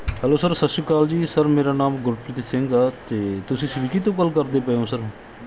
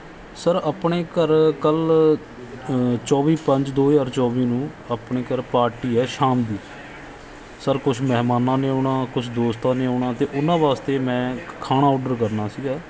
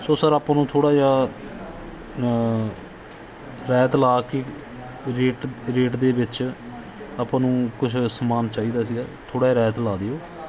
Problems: background sounds at intervals